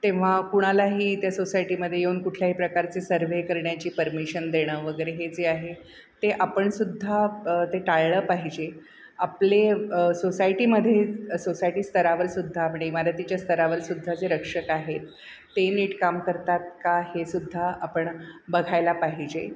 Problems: background sounds at intervals